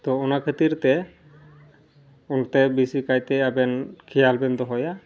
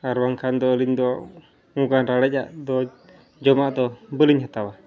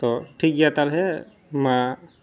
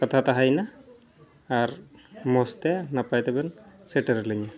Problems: none marked